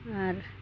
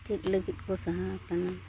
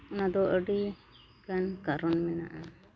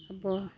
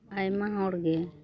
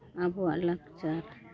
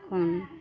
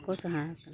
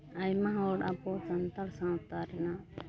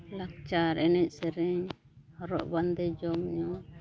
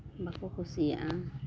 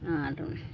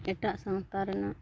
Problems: none marked